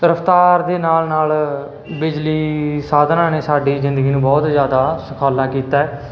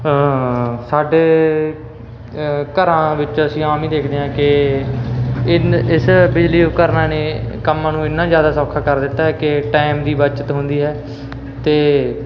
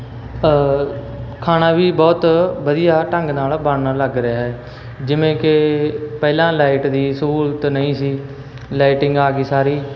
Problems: constant background noise